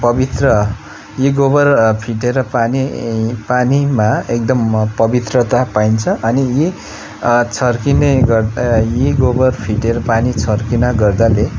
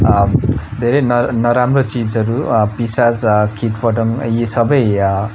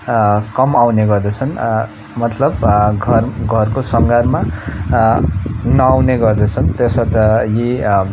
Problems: background conversations at intervals